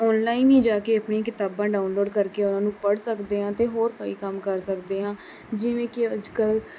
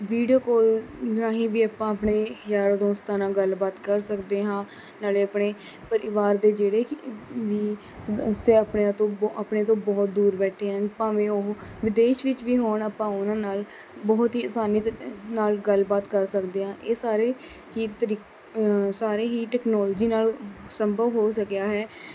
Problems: none marked